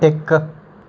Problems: background sounds at intervals